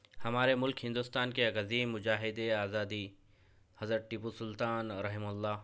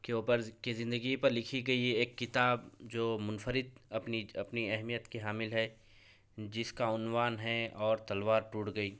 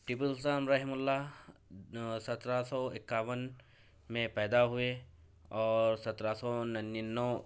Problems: none marked